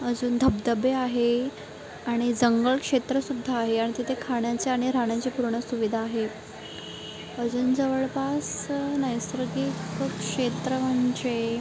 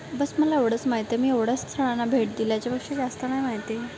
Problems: constant background noise